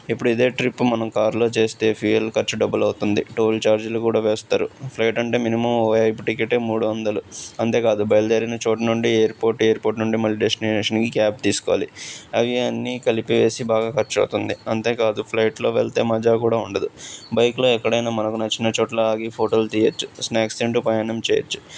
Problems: none marked